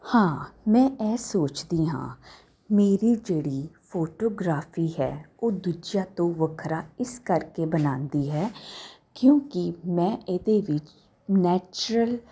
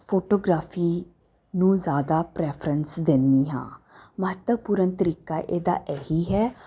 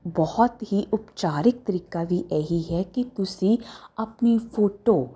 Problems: constant background noise